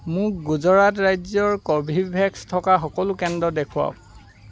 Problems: constant background noise